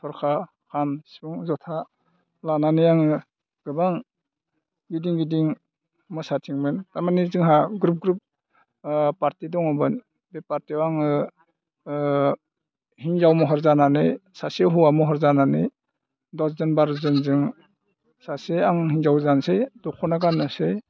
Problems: low volume